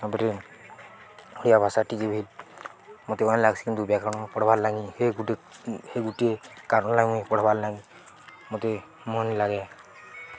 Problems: constant background noise, continuous background conversations